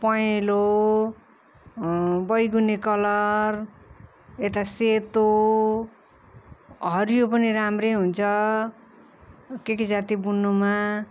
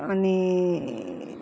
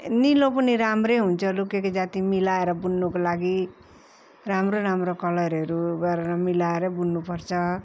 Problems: constant background noise